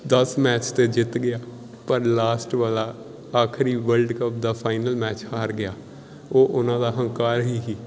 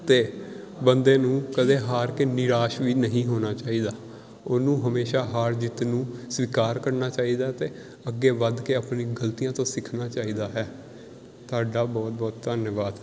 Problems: background sounds at intervals